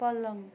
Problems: constant background noise